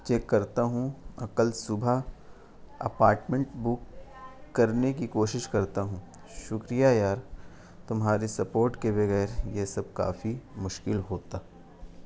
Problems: constant background noise